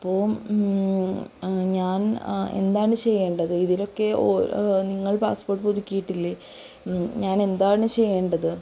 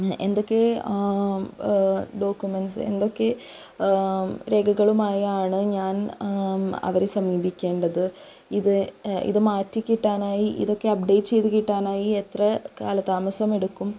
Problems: constant background noise, low volume